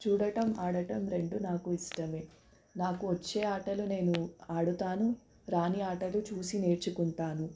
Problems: background sounds at intervals